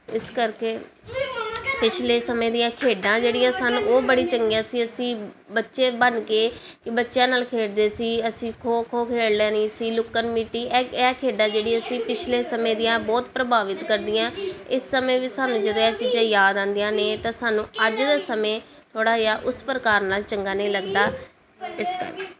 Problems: continuous background conversations